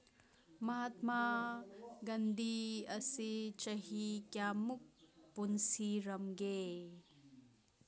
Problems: background sounds at intervals, background conversations at intervals